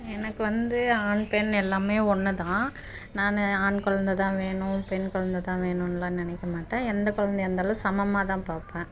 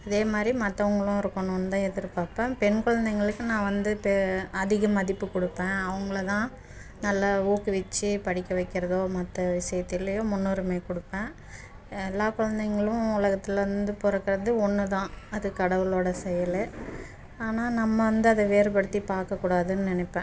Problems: background sounds at intervals